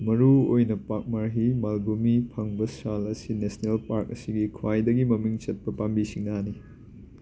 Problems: constant background noise